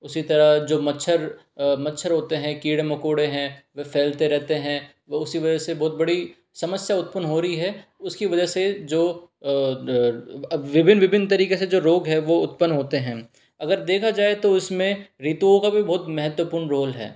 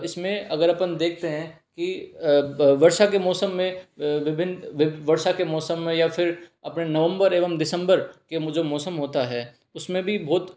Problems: none marked